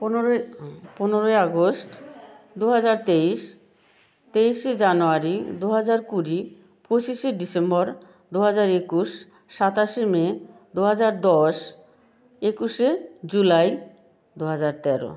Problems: background conversations at intervals